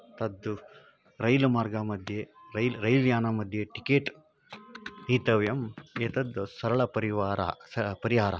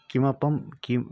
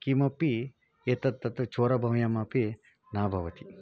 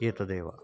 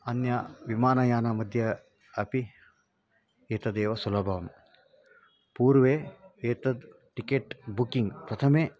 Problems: background conversations at intervals